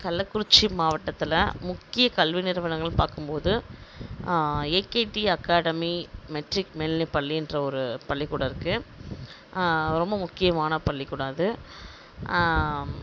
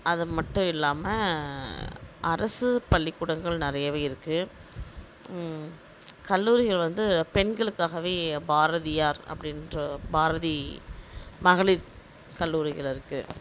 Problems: none marked